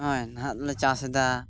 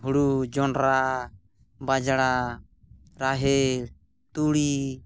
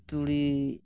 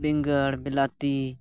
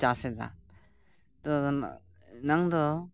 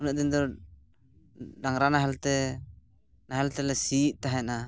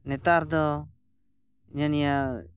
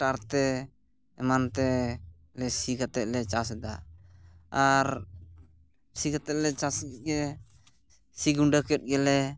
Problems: background sounds at intervals